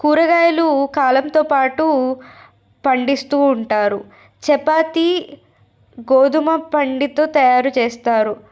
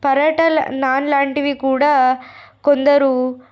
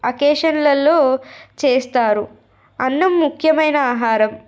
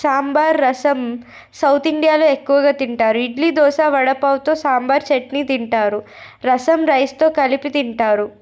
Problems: none marked